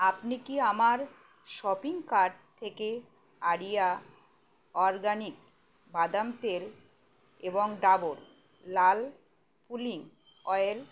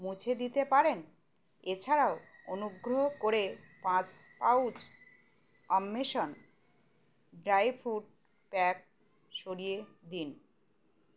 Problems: none marked